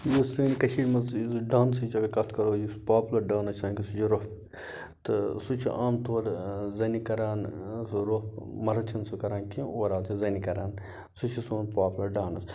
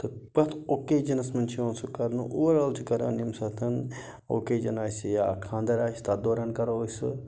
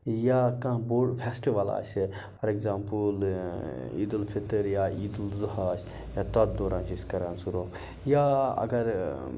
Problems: background sounds at intervals